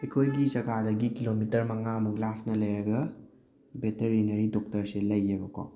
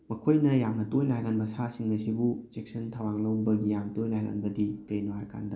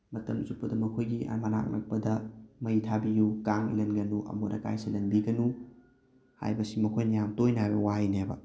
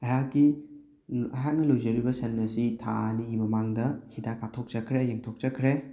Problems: background sounds at intervals